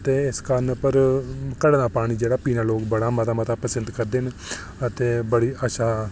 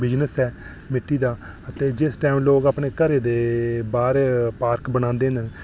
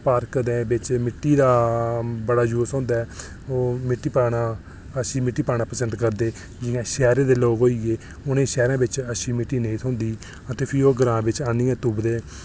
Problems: none marked